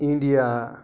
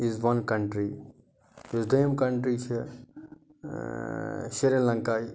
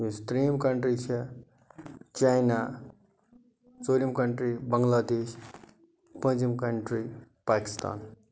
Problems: none marked